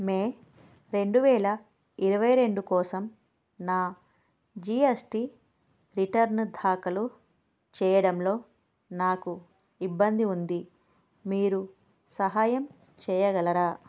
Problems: none marked